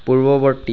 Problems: background sounds at intervals